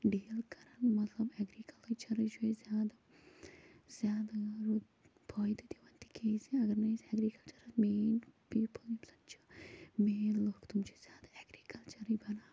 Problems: constant background noise, low volume